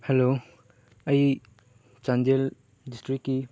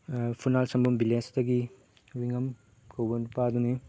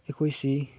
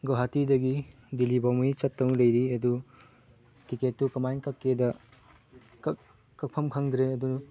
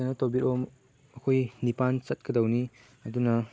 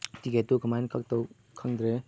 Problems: background sounds at intervals